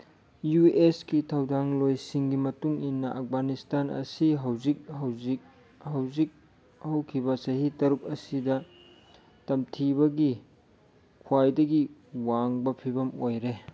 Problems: none marked